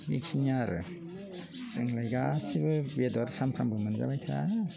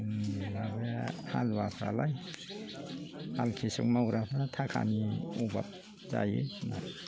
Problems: low volume